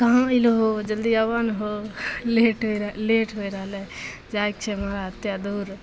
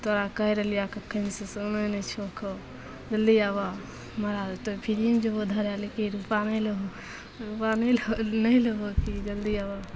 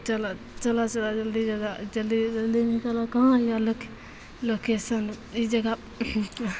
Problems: none marked